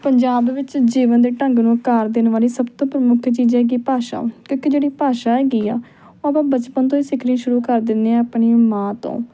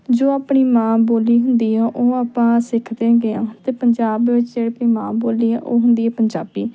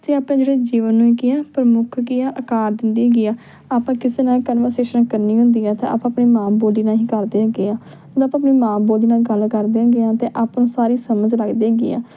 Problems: background conversations at intervals